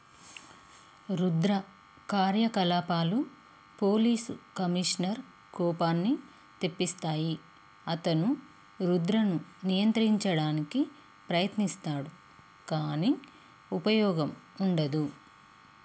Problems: constant background noise